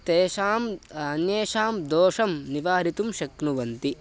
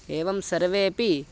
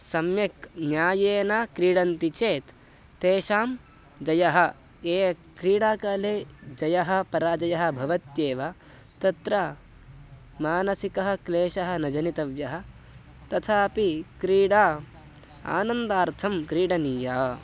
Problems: constant background noise